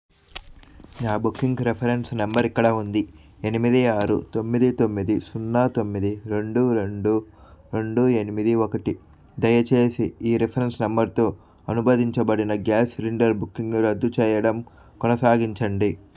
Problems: background sounds at intervals